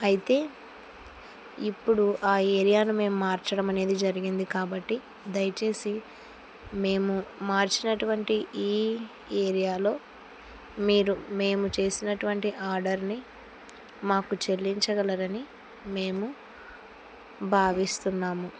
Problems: none marked